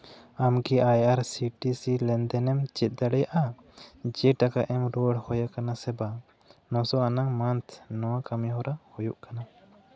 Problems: none marked